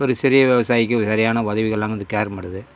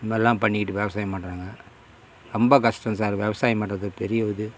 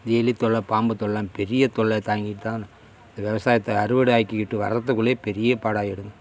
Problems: constant background noise